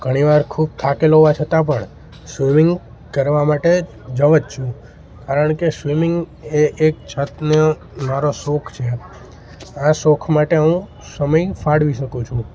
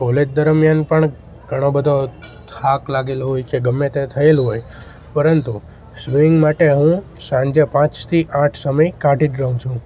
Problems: constant background noise